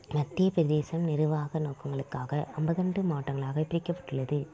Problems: low volume